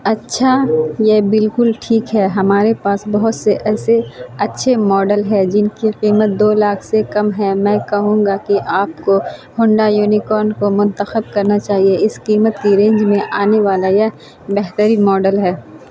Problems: constant background noise